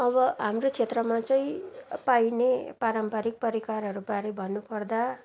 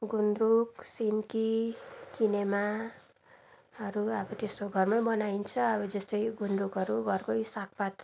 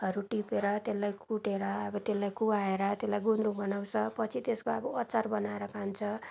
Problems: background sounds at intervals, background conversations at intervals